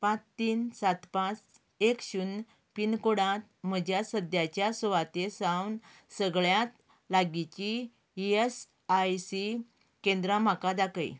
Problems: none marked